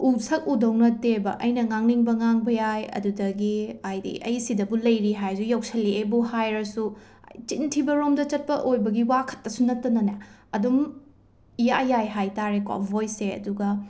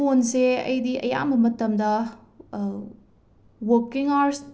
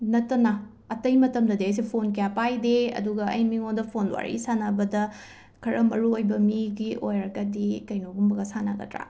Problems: background sounds at intervals